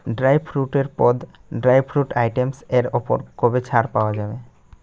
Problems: background sounds at intervals